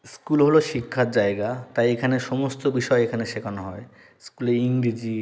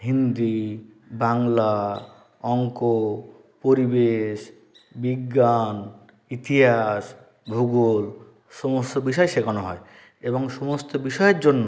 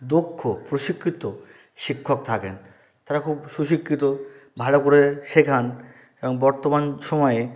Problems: background sounds at intervals